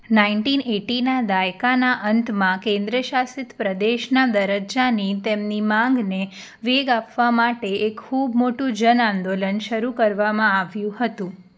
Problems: none marked